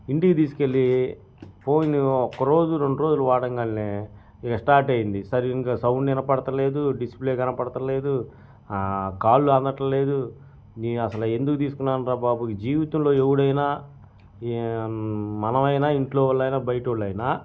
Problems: none marked